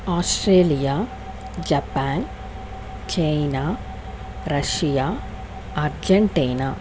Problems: constant background noise